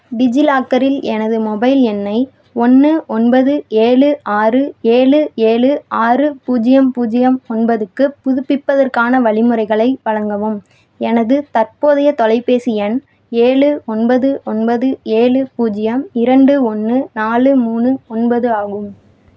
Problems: none marked